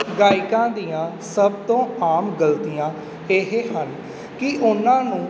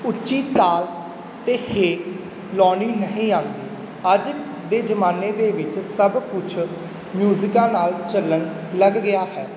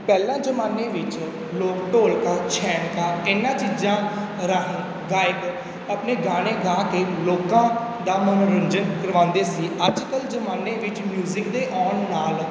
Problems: background sounds at intervals